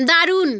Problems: constant background noise